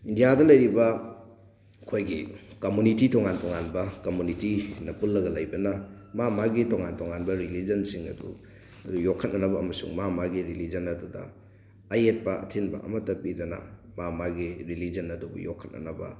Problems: background sounds at intervals